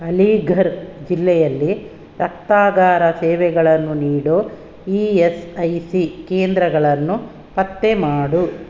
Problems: none marked